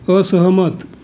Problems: background sounds at intervals